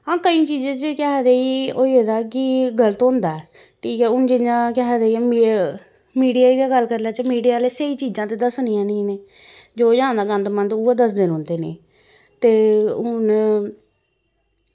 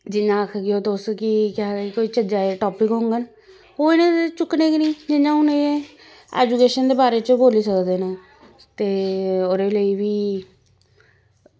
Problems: constant background noise